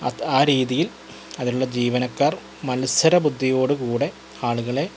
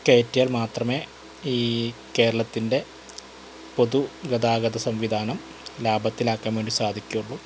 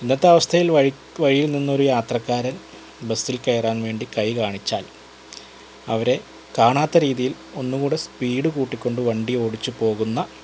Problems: constant background noise